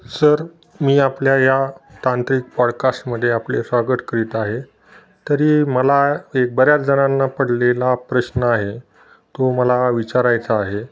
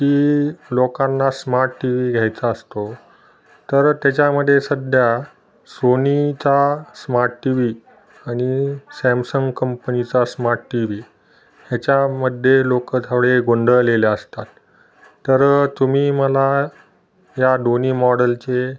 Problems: background sounds at intervals, background conversations at intervals